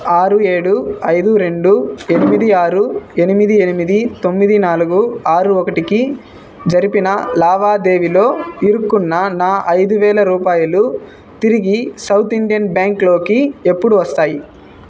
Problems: background sounds at intervals